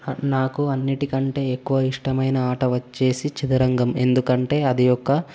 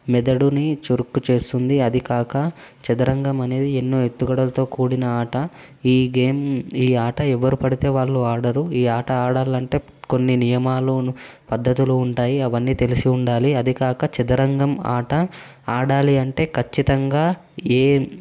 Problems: constant background noise